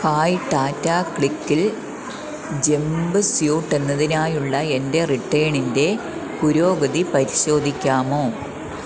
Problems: constant background noise, low volume